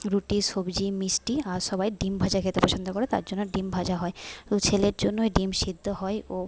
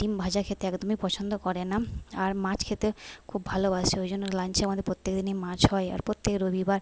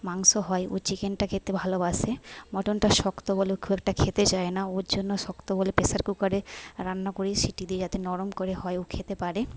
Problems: background conversations at intervals, low volume